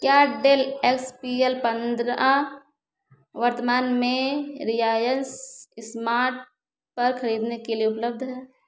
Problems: echo